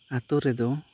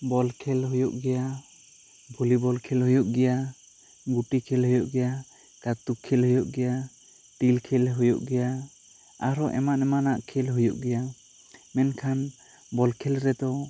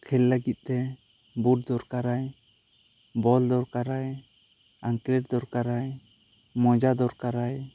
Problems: constant background noise